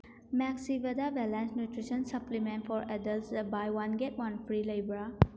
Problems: none marked